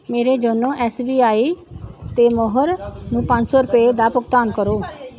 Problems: none marked